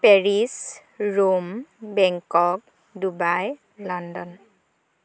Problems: background conversations at intervals